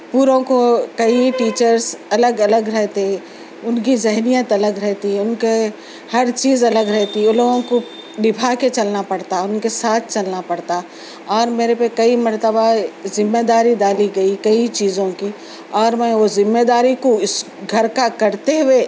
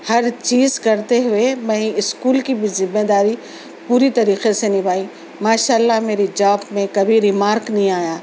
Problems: constant background noise